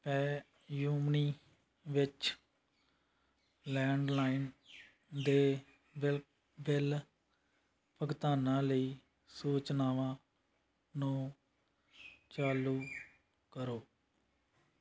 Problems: background sounds at intervals